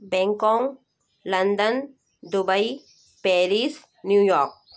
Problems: constant background noise